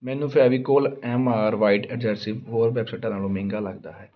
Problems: constant background noise